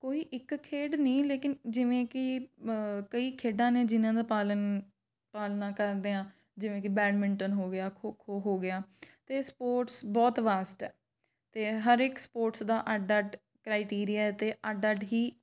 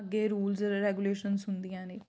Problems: background sounds at intervals